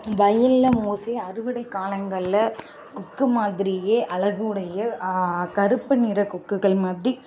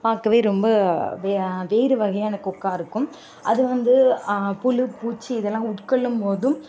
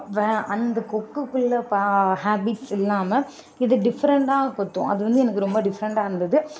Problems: constant background noise, background conversations at intervals